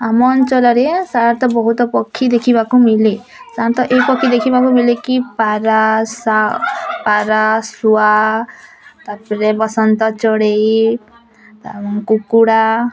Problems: constant background noise, continuous background conversations